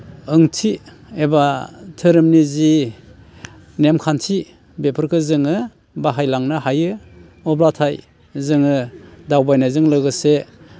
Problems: constant background noise